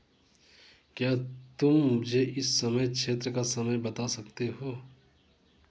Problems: none marked